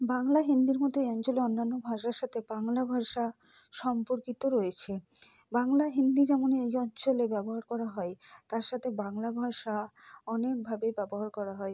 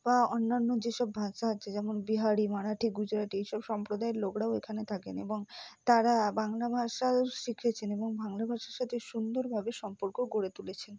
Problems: low volume